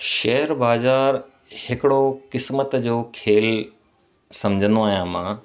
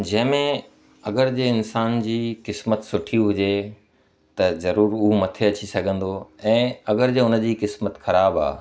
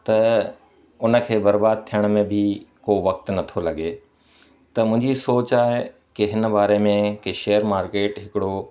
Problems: constant background noise, echo